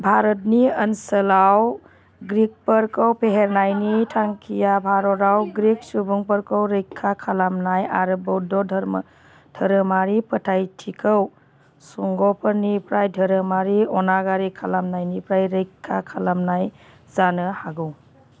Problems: constant background noise